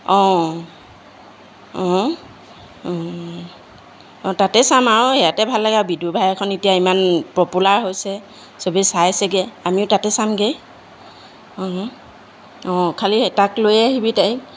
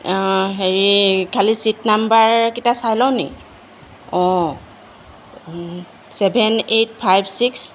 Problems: constant background noise